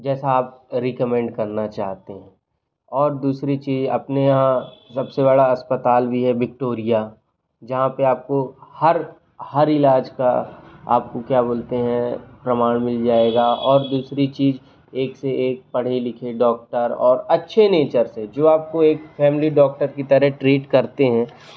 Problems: background sounds at intervals